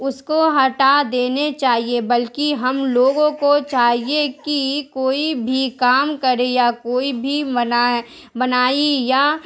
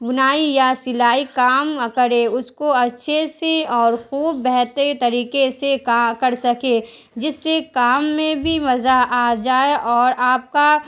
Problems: constant background noise